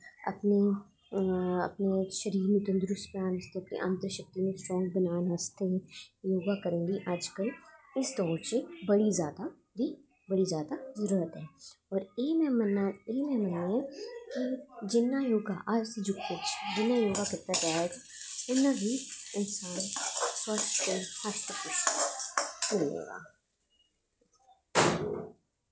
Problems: echo